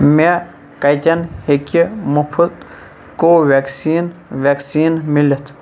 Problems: none marked